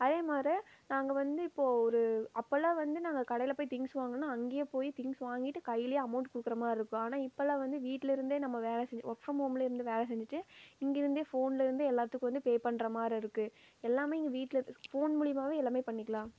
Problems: low volume